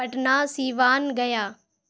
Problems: none marked